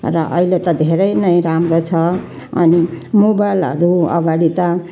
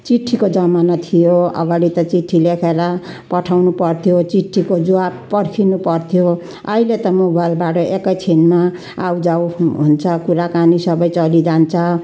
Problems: constant background noise